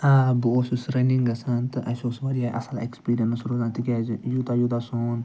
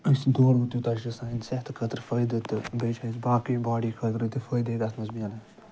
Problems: none marked